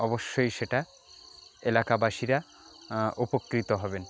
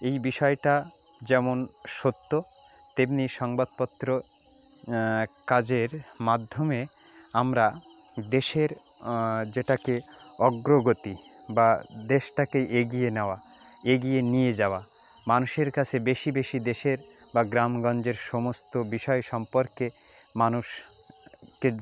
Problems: constant background noise